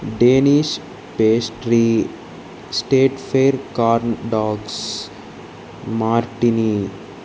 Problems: constant background noise